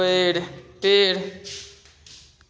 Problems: constant background noise, continuous background conversations